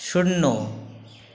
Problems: constant background noise